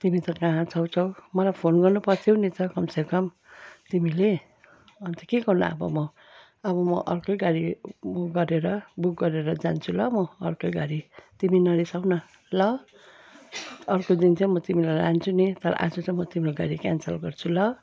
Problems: none marked